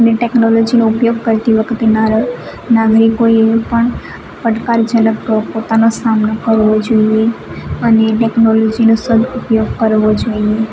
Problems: none marked